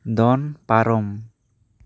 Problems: none marked